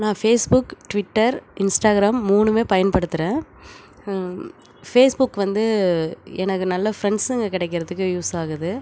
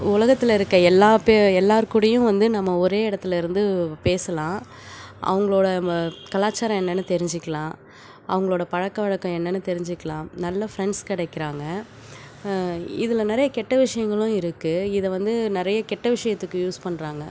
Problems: none marked